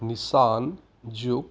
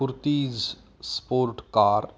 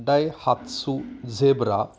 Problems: constant background noise